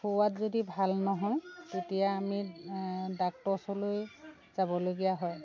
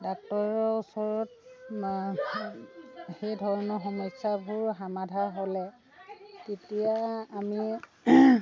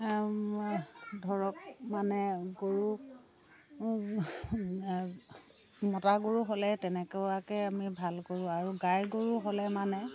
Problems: constant background noise, continuous background conversations